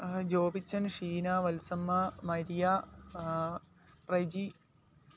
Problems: low volume